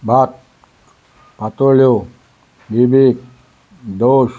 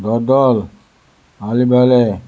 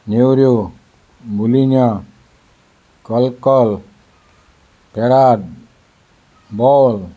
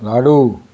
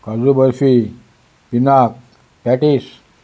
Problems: none marked